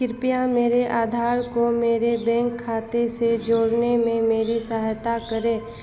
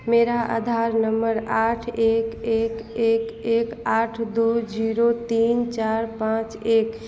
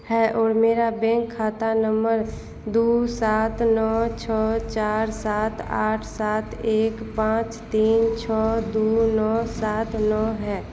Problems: constant background noise